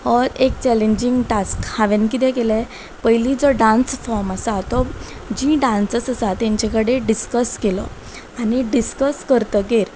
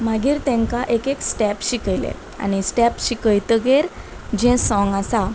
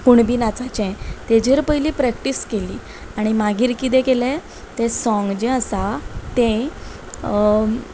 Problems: background sounds at intervals